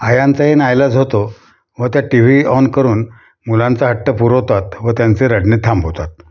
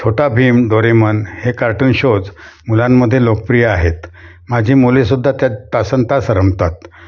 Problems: background sounds at intervals